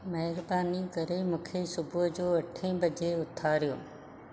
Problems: none marked